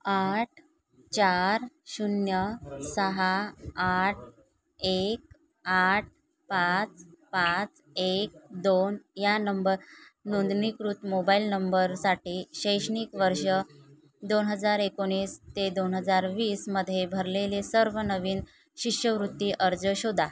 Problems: constant background noise, background conversations at intervals